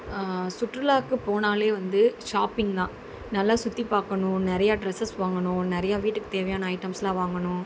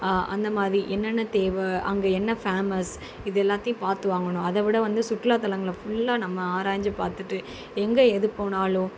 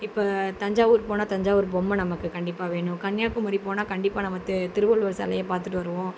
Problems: constant background noise